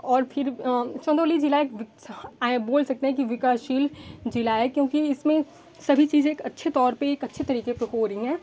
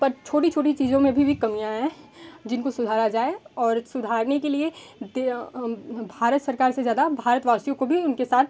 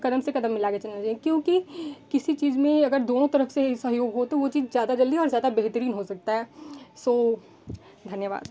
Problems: constant background noise